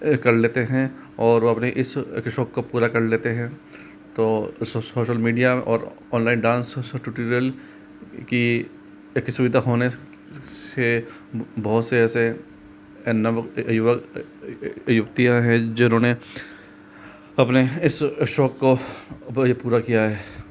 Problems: constant background noise